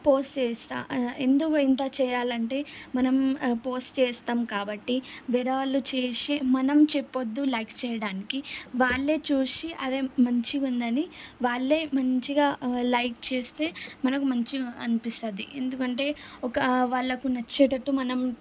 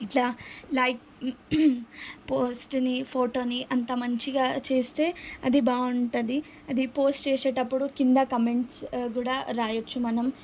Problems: none marked